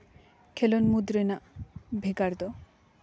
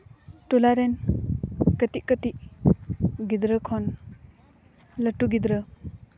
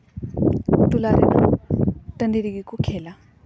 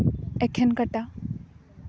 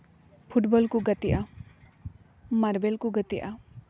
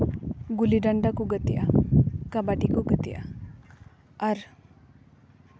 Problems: background sounds at intervals